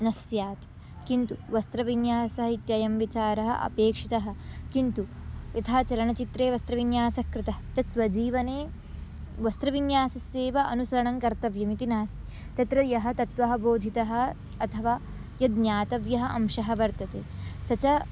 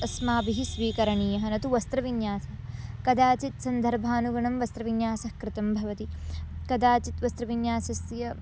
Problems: constant background noise